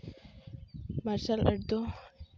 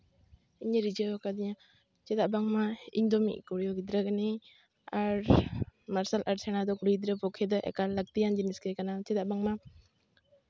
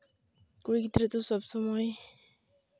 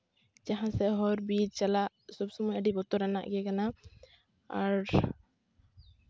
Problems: none marked